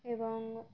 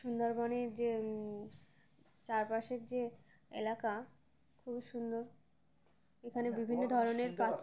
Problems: none marked